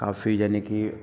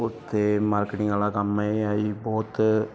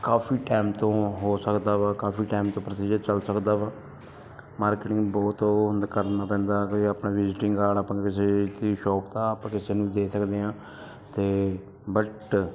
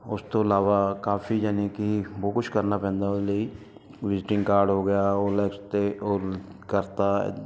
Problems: none marked